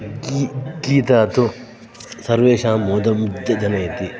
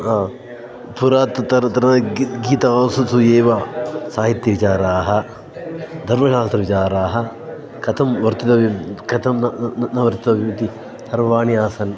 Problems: background sounds at intervals